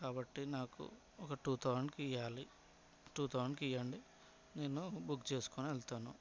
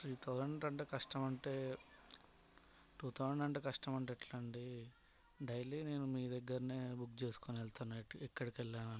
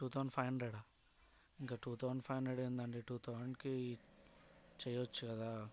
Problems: background sounds at intervals, background conversations at intervals, low volume